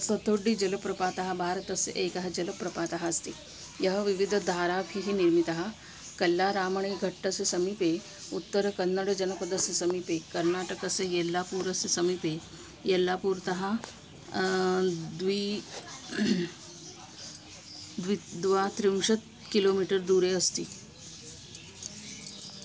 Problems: constant background noise